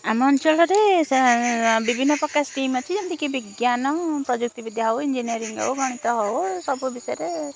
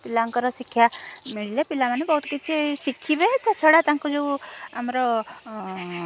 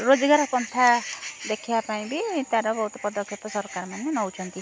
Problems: constant background noise, continuous background conversations